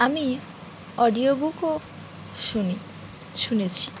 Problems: none marked